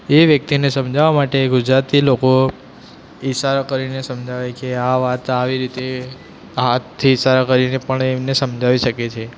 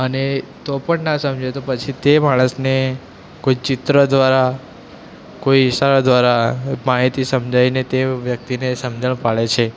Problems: constant background noise